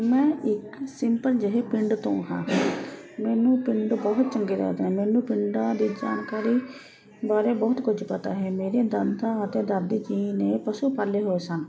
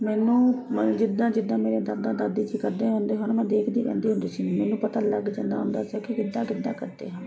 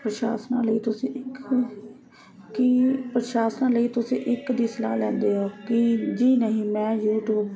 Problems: constant background noise, continuous background conversations